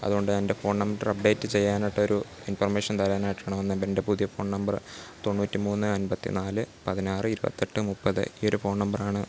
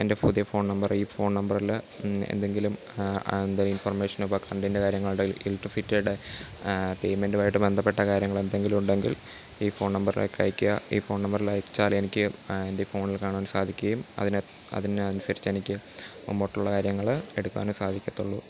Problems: background sounds at intervals, low volume